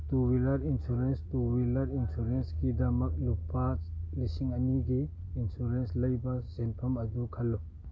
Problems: constant background noise